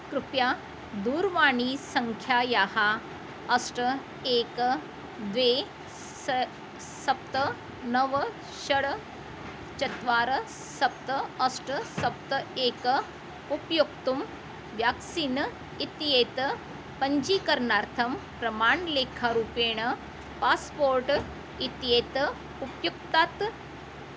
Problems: constant background noise